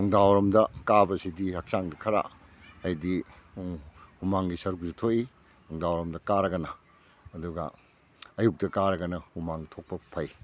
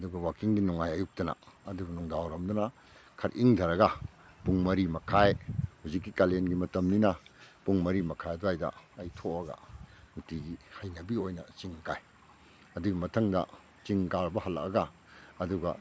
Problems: none marked